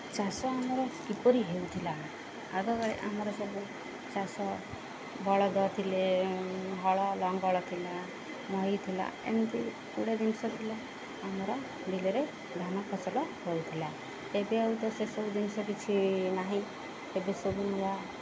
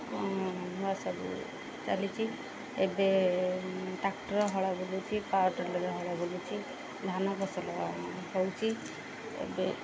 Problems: constant background noise